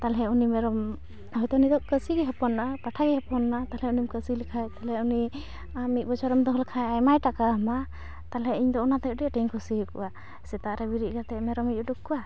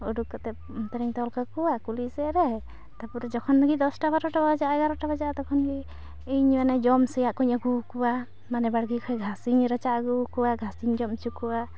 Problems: constant background noise